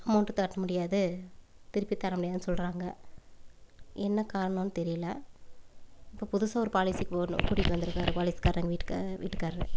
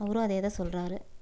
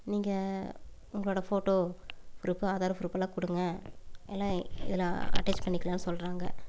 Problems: background sounds at intervals, low volume